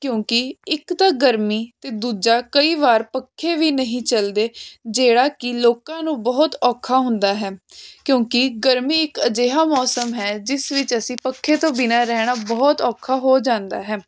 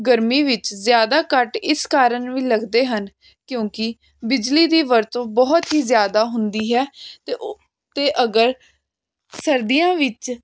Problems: constant background noise